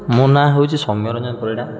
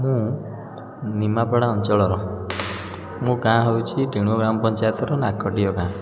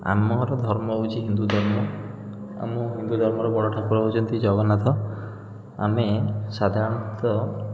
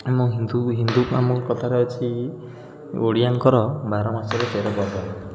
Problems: constant background noise